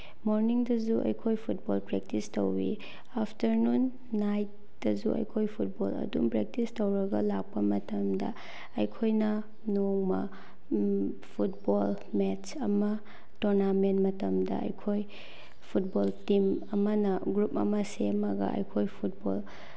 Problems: none marked